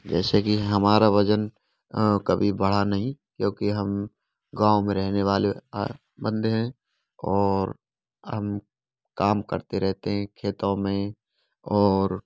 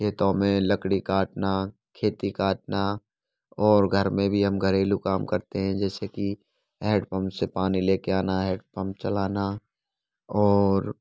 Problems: constant background noise